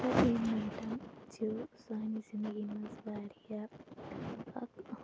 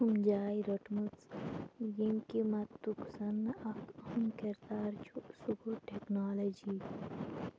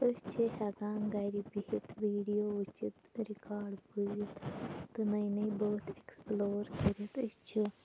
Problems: background sounds at intervals, low volume